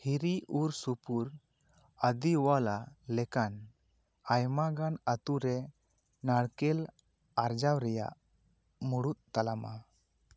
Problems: none marked